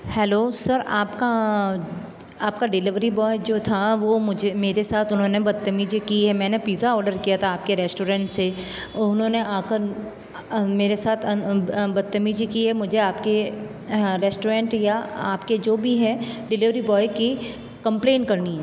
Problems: background sounds at intervals